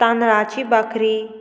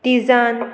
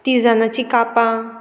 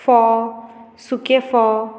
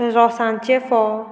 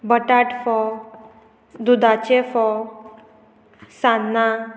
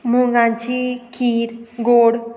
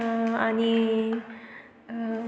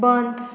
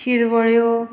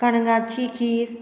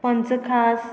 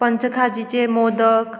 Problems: constant background noise